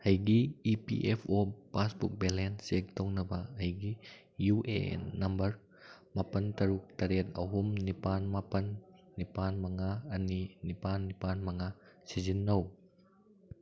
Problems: background sounds at intervals